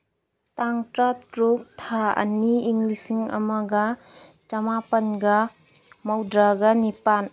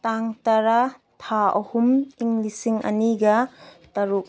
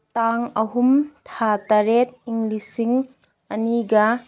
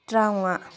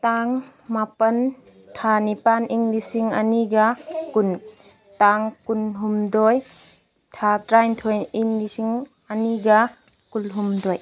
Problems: none marked